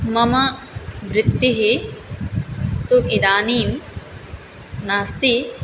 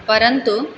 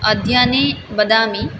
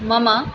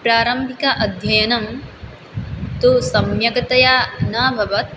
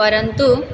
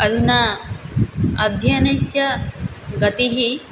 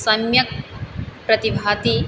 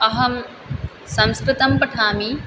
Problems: none marked